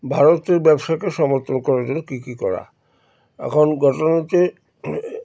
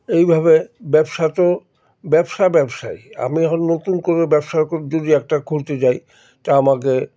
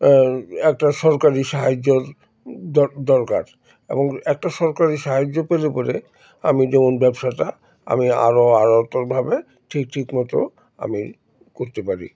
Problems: background sounds at intervals, background conversations at intervals